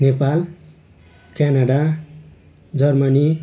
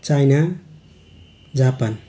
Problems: background sounds at intervals